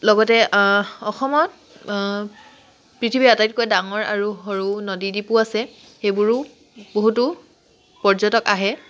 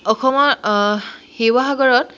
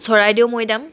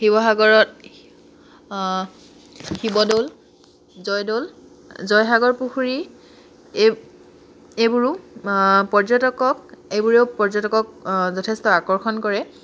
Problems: constant background noise